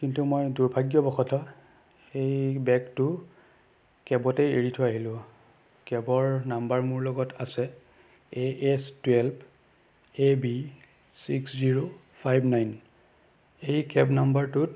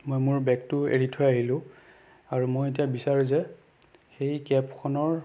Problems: none marked